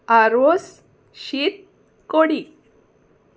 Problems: none marked